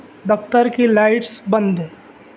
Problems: none marked